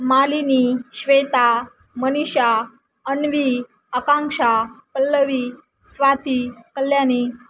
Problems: constant background noise